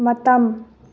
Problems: low volume